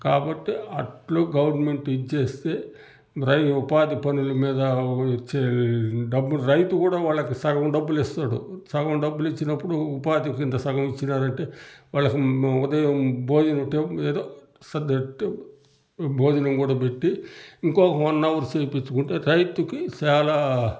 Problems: none marked